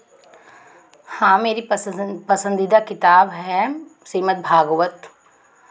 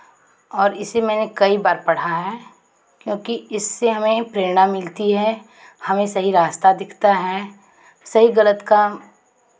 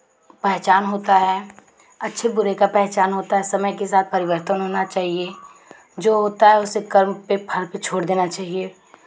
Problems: constant background noise